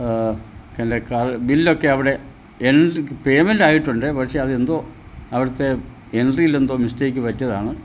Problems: low volume